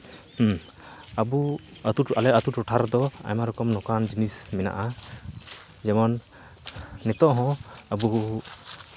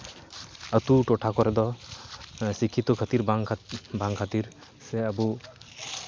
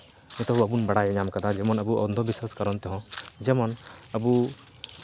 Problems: background sounds at intervals